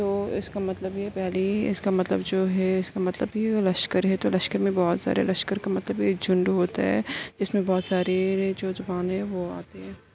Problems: constant background noise, low volume